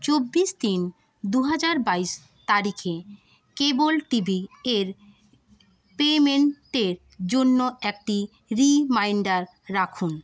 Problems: constant background noise, continuous background conversations